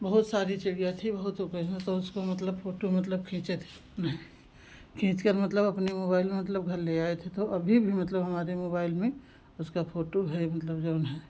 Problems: constant background noise